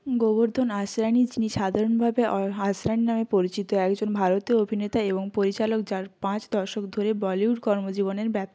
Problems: none marked